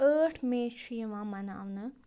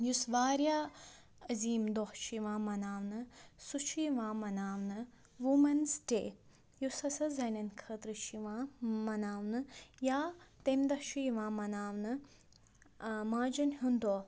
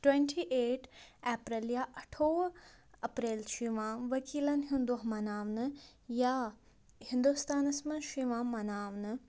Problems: low volume